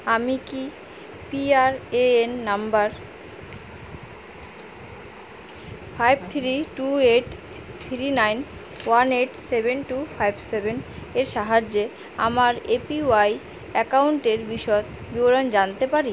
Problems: constant background noise